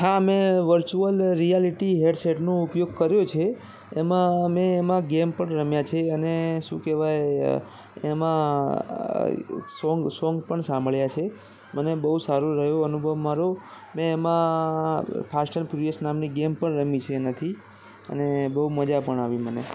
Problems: constant background noise